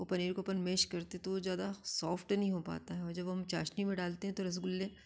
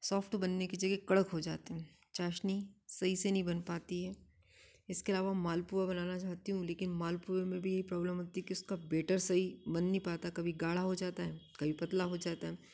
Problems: none marked